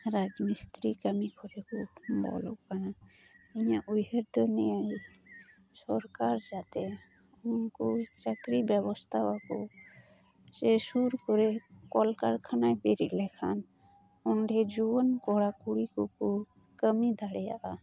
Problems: none marked